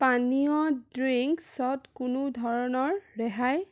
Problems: none marked